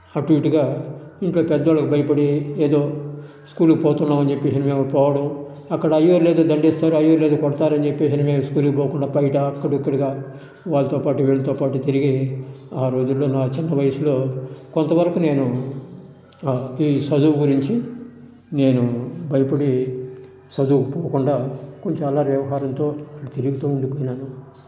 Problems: none marked